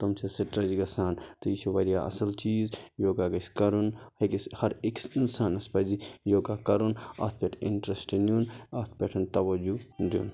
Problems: none marked